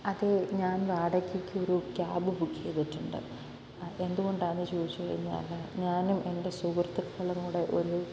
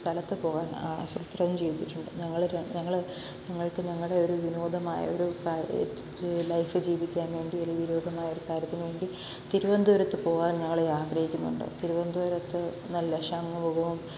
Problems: constant background noise, low volume